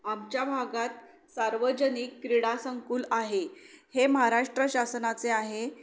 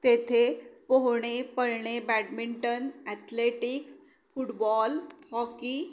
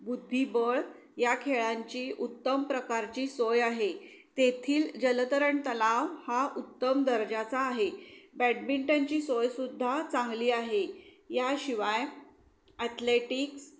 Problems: none marked